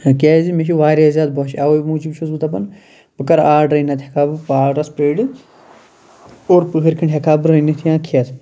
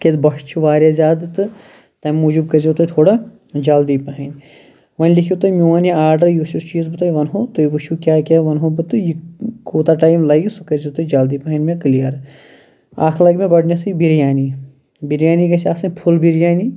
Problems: background sounds at intervals